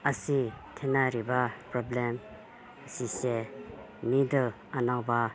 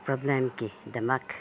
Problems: background sounds at intervals